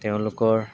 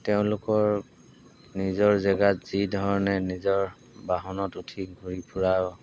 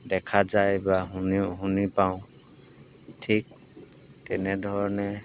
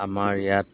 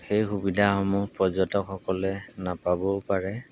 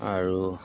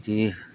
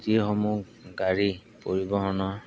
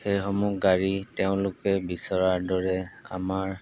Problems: background sounds at intervals